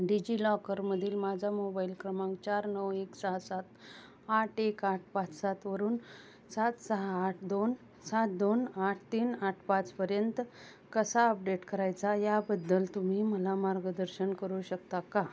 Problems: constant background noise, continuous background conversations